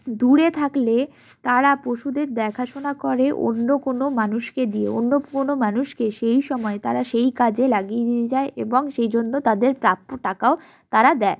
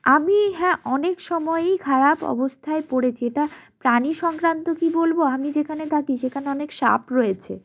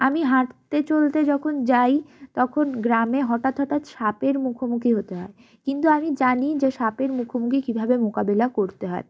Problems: none marked